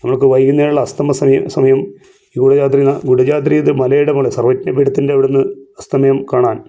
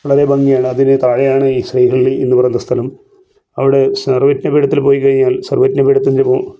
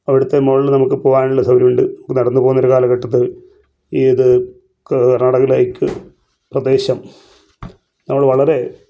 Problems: none marked